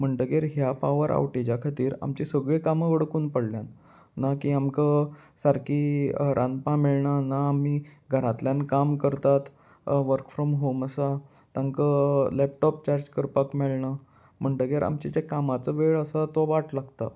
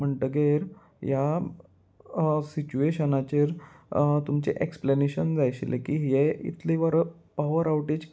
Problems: none marked